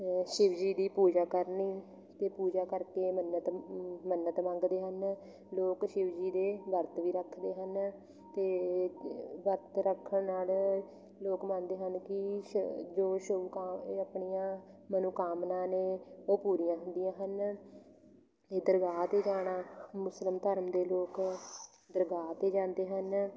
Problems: none marked